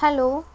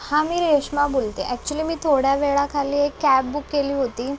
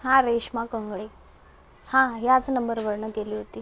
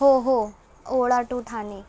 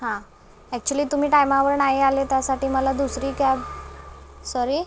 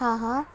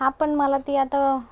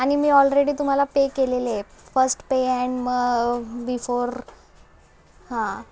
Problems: background sounds at intervals, background conversations at intervals